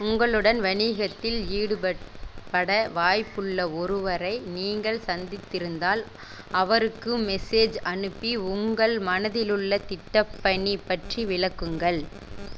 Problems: constant background noise